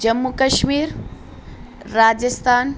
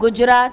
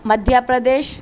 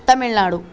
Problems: none marked